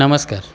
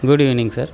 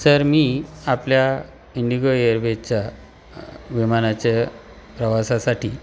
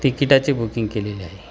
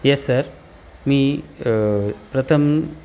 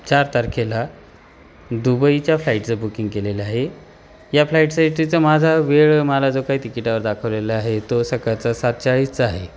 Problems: constant background noise